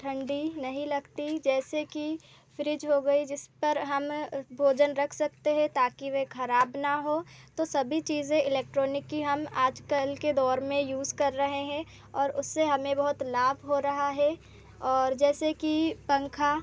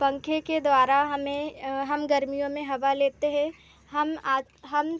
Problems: constant background noise